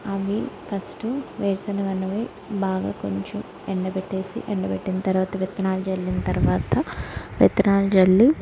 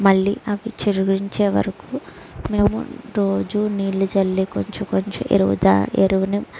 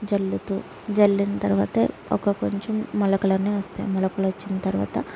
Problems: low volume